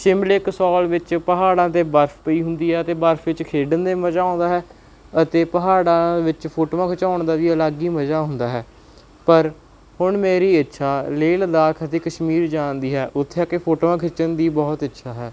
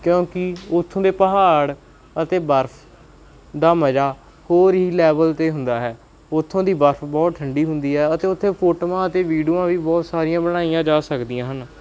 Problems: background sounds at intervals